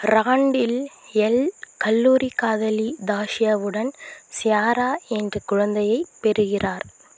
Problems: constant background noise